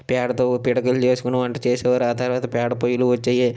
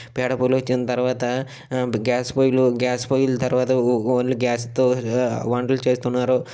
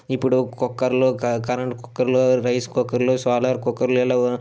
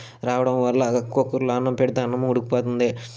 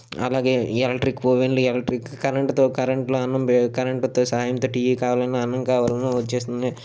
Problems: none marked